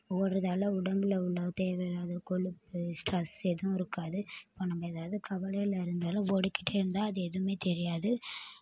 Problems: background sounds at intervals